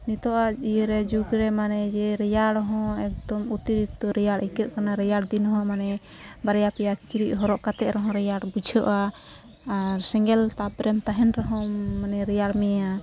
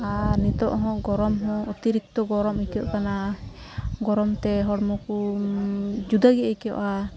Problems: background sounds at intervals, background conversations at intervals